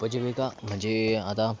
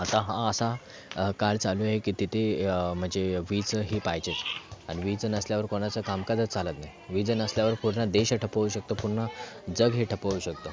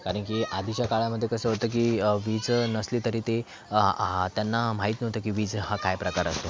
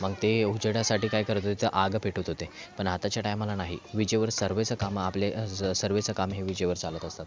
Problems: background sounds at intervals, background conversations at intervals